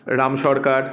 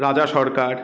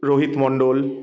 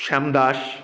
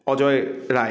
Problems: background sounds at intervals